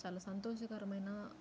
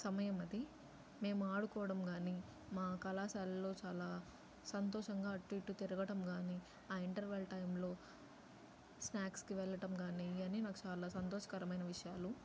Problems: low volume